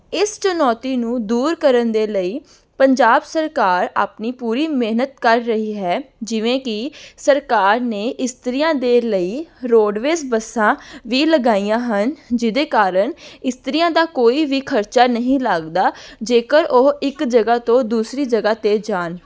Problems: background sounds at intervals